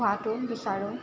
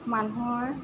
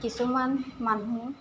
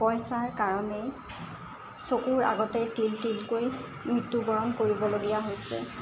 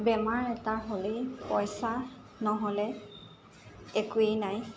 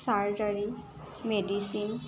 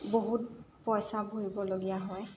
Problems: constant background noise